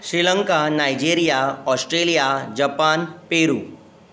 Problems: constant background noise